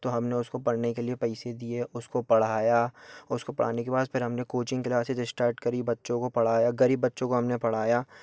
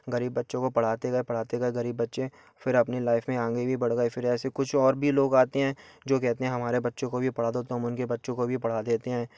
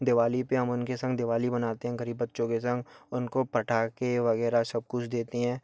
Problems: background sounds at intervals